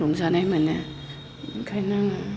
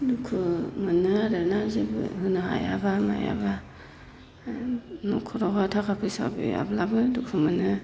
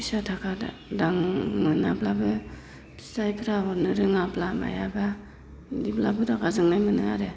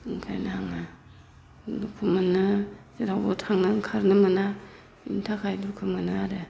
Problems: constant background noise